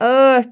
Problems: none marked